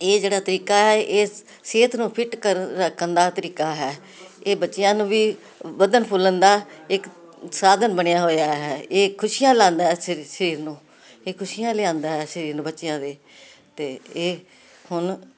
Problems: continuous background conversations